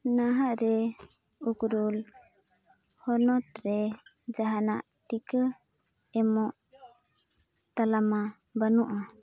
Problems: none marked